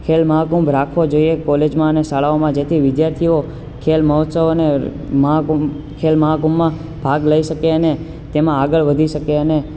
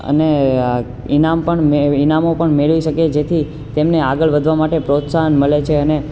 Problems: constant background noise